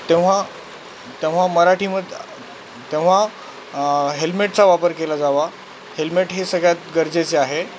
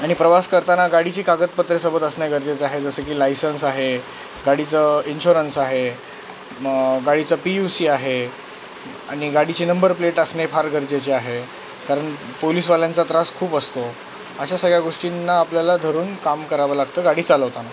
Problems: constant background noise